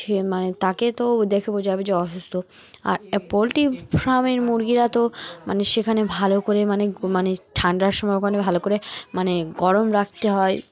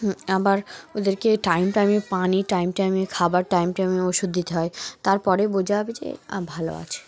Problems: background sounds at intervals, background conversations at intervals